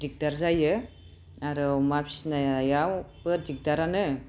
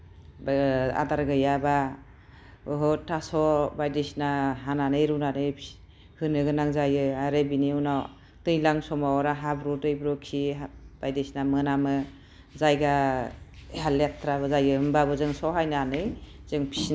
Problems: none marked